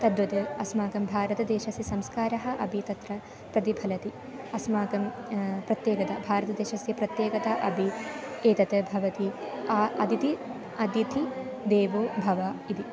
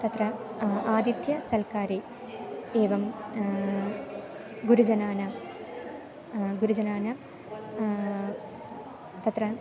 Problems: none marked